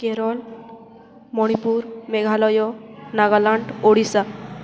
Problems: constant background noise